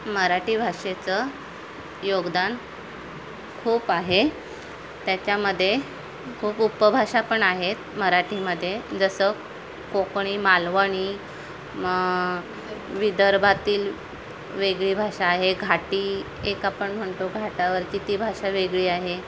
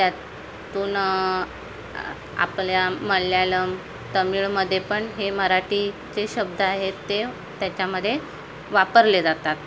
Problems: constant background noise, background conversations at intervals